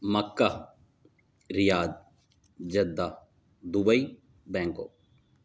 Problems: none marked